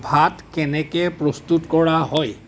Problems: background sounds at intervals